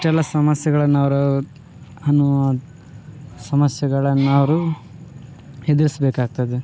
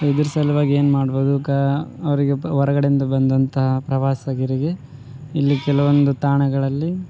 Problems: background sounds at intervals